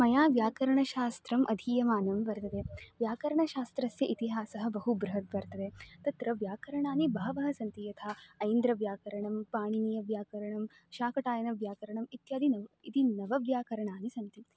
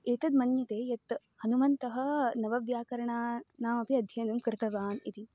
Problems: background sounds at intervals